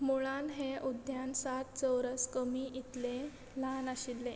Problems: constant background noise